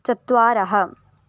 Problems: none marked